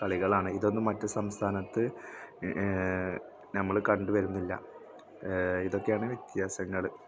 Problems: background sounds at intervals, background conversations at intervals